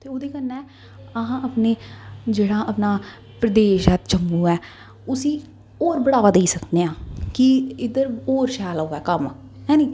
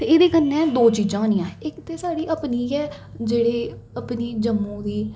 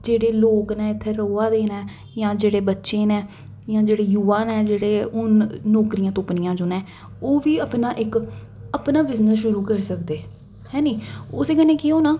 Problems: echo